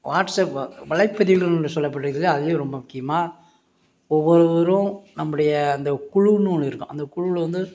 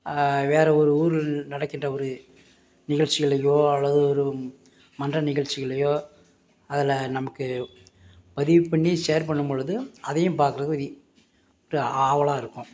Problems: none marked